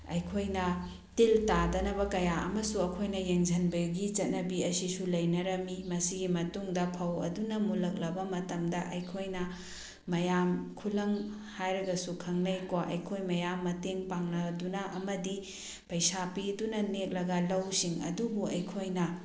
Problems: none marked